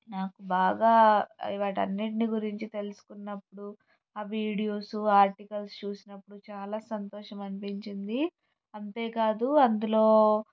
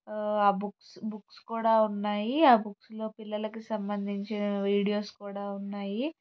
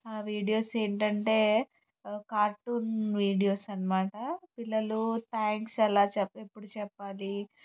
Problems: background sounds at intervals, background conversations at intervals